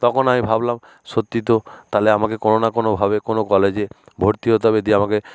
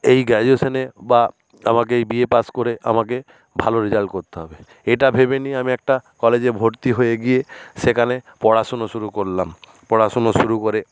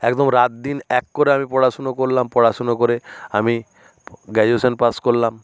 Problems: none marked